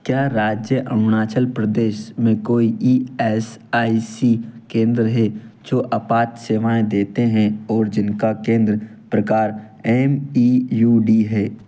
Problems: background sounds at intervals